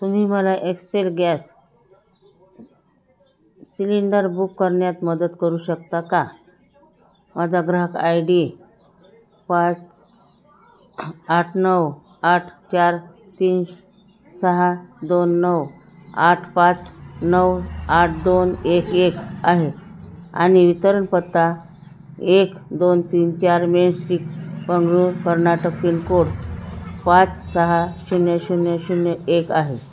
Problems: none marked